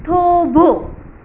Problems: constant background noise